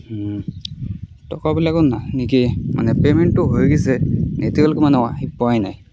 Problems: background conversations at intervals